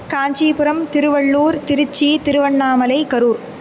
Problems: none marked